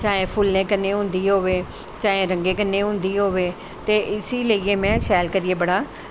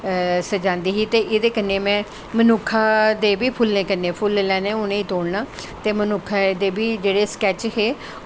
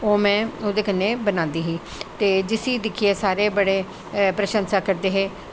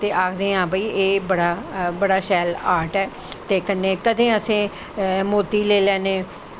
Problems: none marked